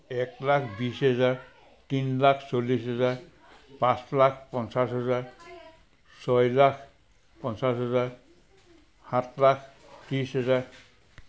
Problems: none marked